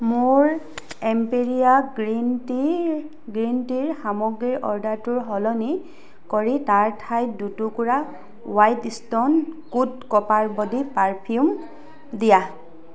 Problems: background conversations at intervals